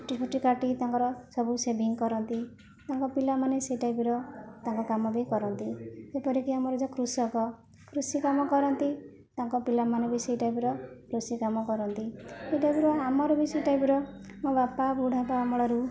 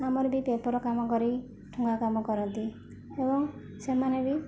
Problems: background conversations at intervals, low volume